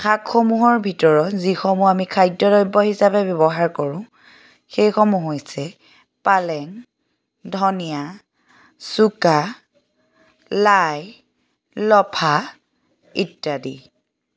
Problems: background sounds at intervals